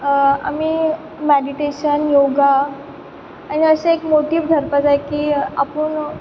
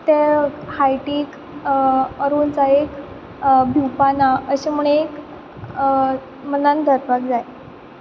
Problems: constant background noise